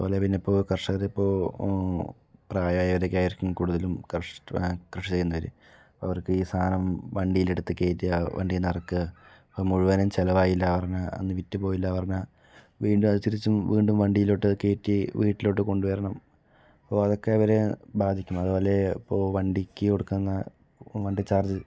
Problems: none marked